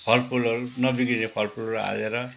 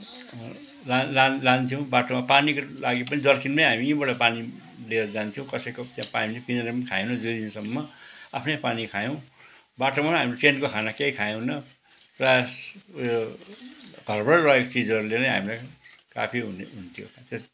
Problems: background sounds at intervals